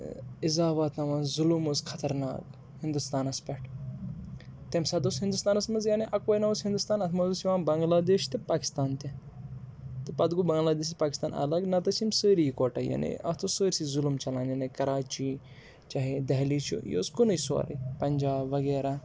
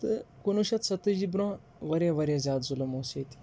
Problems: background sounds at intervals